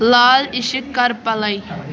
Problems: constant background noise